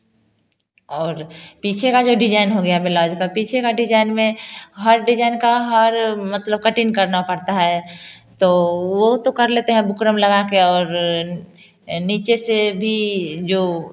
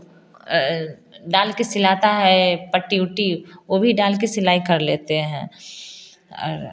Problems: constant background noise